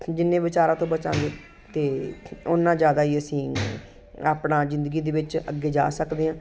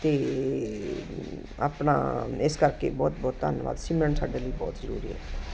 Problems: constant background noise